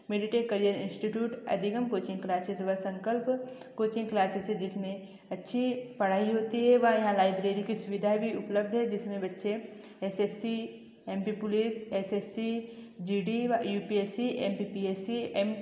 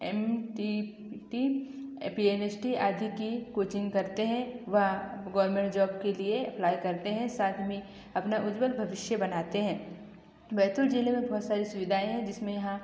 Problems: echo